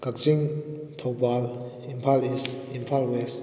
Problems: background conversations at intervals